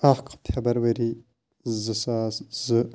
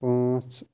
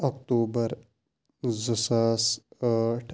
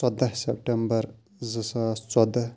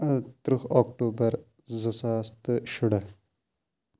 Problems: background sounds at intervals